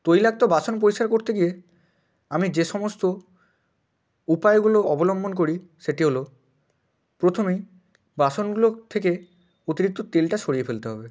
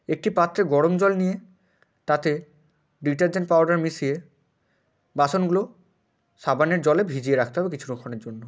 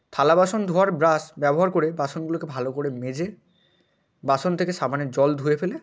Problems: none marked